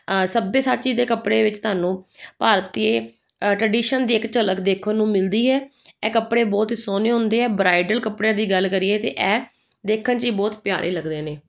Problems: none marked